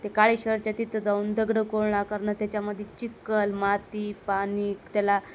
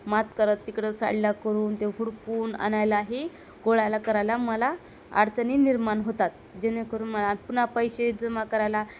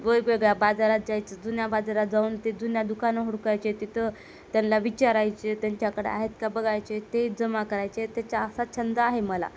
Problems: none marked